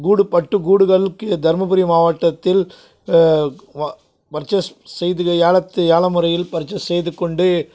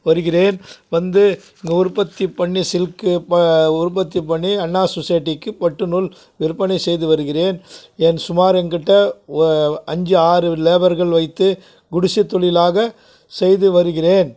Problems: background sounds at intervals